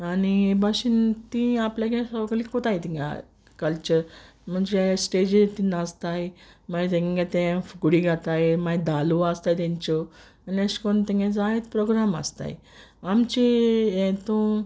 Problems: constant background noise